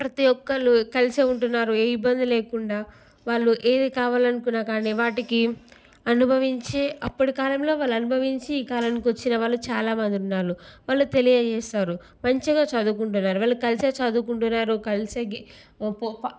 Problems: none marked